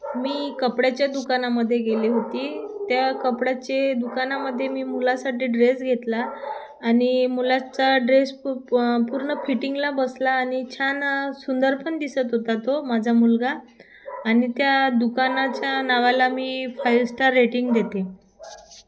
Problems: constant background noise